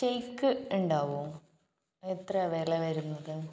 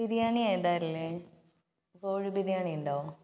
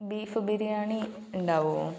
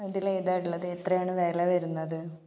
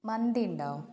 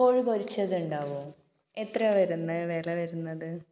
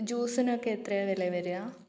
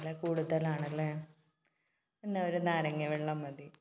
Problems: background sounds at intervals